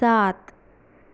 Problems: background sounds at intervals